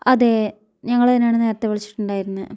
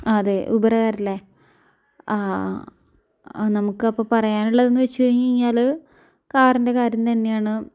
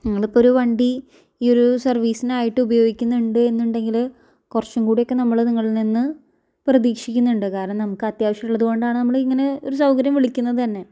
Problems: low volume